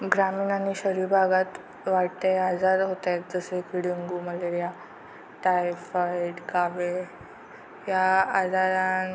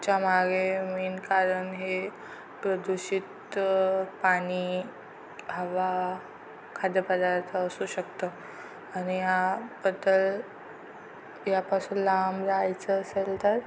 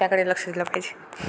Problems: constant background noise